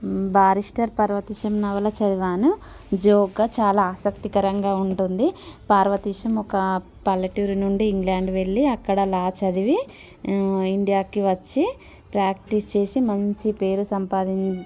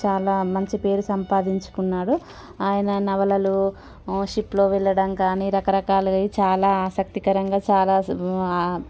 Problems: constant background noise